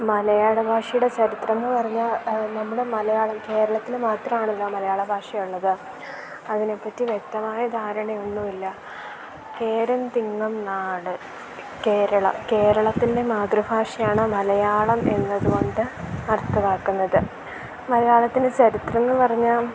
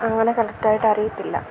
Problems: constant background noise